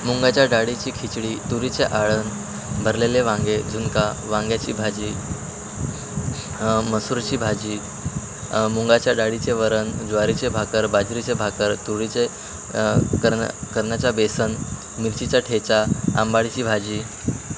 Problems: constant background noise, background conversations at intervals